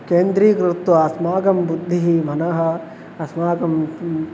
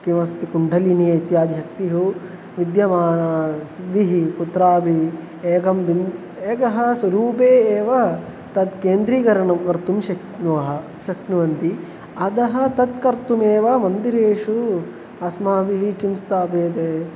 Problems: constant background noise